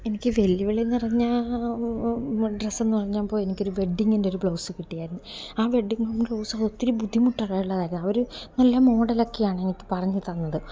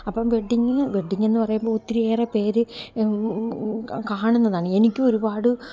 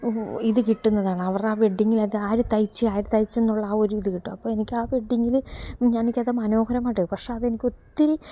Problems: background sounds at intervals